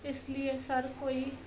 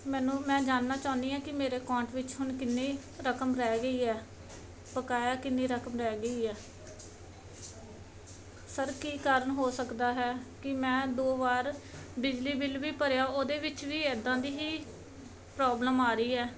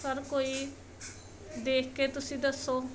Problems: background sounds at intervals